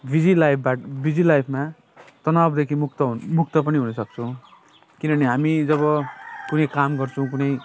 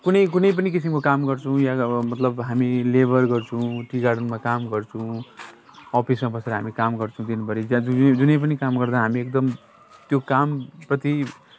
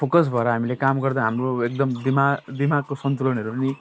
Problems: none marked